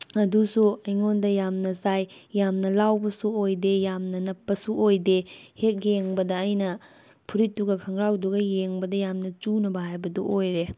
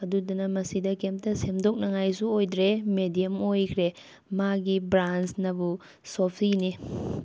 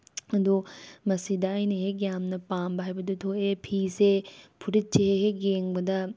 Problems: background conversations at intervals